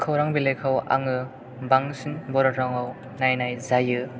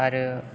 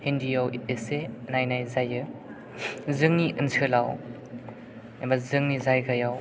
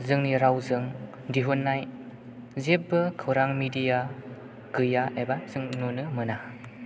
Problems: background sounds at intervals